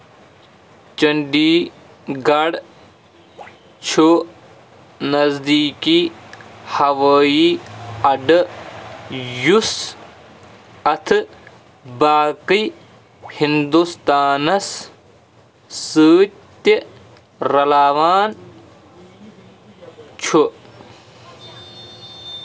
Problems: constant background noise